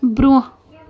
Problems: continuous background conversations